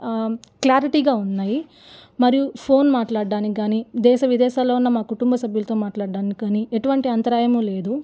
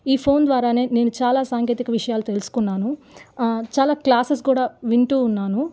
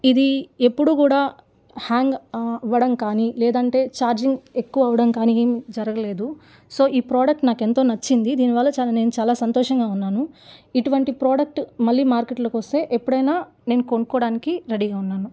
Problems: none marked